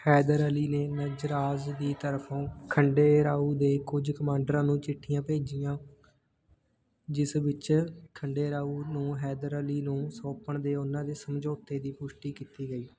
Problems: background conversations at intervals